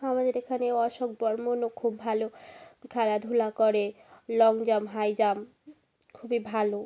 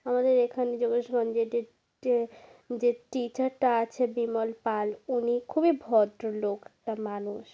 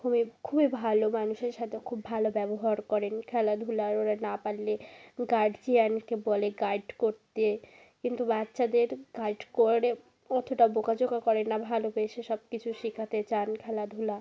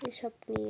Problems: continuous background conversations